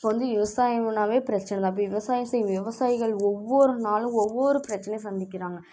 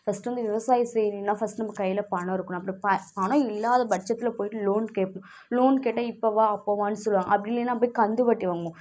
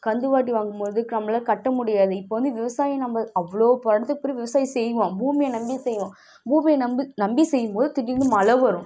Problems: background sounds at intervals